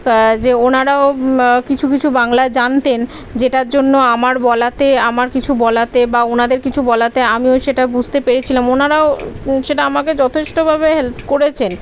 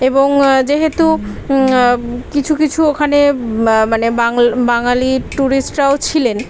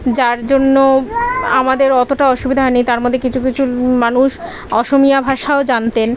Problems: none marked